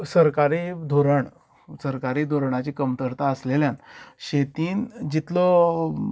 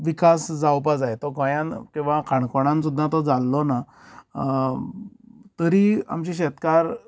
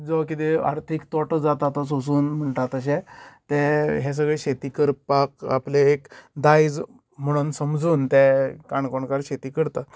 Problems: none marked